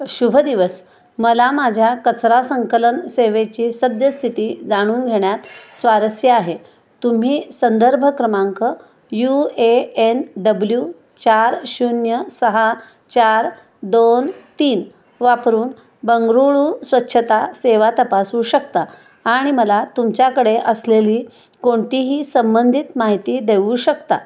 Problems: constant background noise, echo